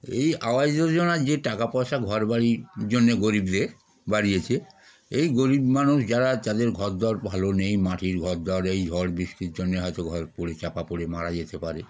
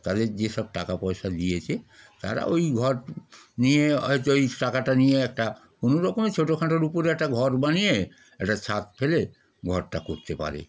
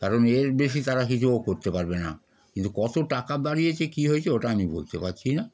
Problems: background conversations at intervals